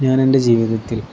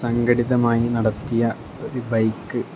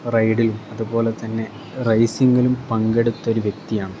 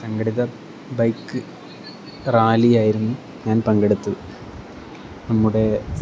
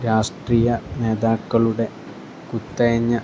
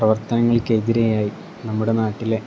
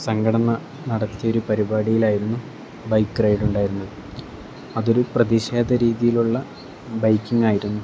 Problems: constant background noise